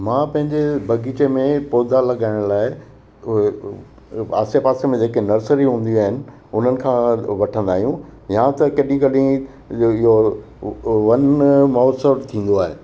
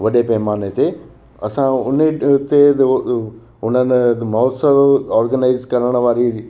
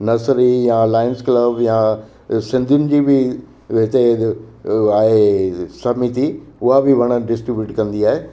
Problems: constant background noise, echo